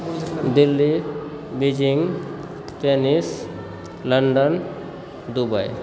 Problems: background sounds at intervals, background conversations at intervals